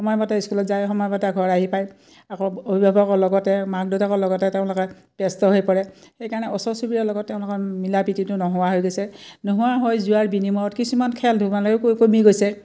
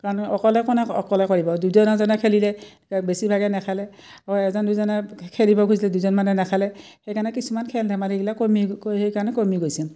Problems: none marked